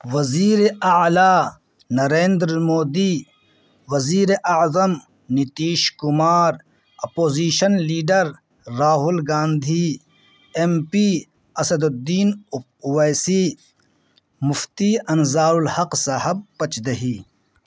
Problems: background sounds at intervals